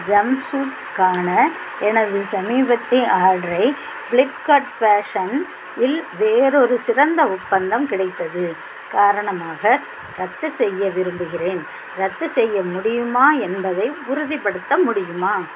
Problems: constant background noise